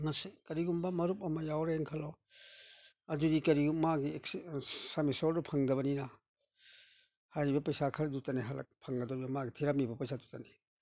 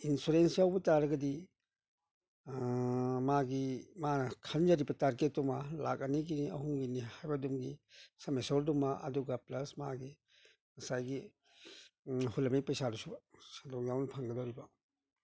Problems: none marked